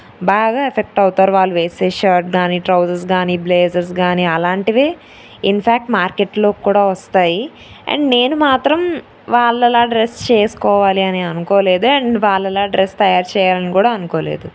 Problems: none marked